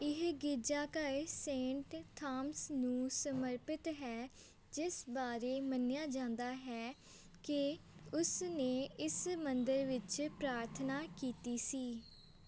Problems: none marked